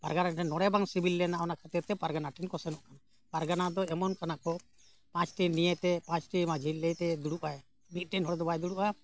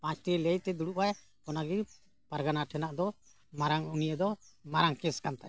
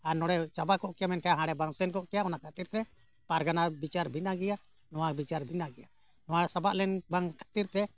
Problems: background sounds at intervals